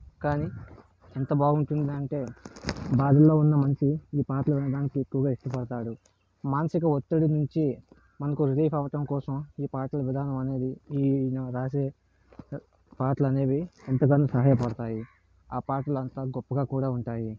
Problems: constant background noise